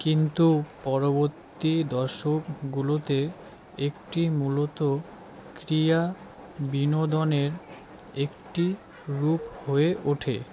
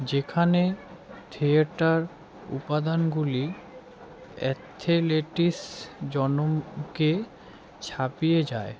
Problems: background sounds at intervals, continuous background conversations